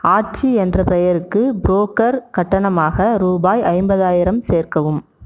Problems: none marked